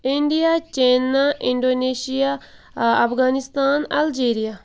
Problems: background sounds at intervals